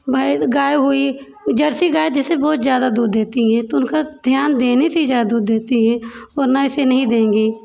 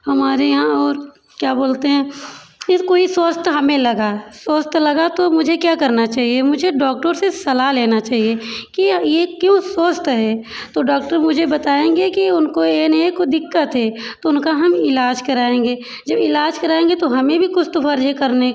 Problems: background sounds at intervals